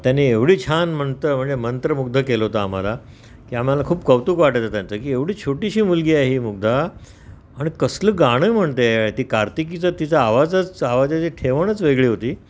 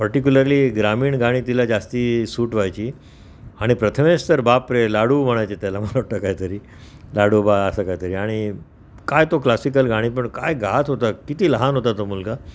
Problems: none marked